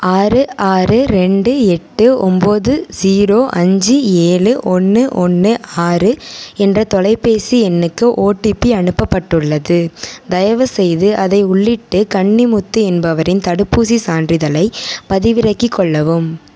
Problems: none marked